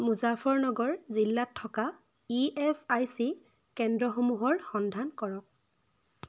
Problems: none marked